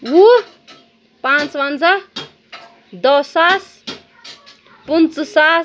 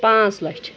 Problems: constant background noise